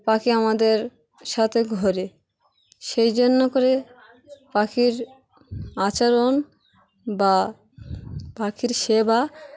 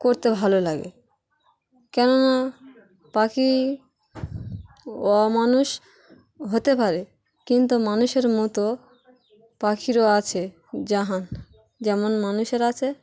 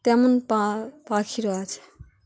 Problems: constant background noise, continuous background conversations